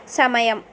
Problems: none marked